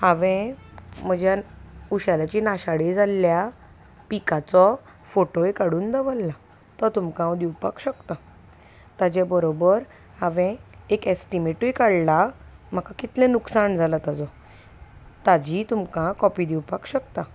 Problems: none marked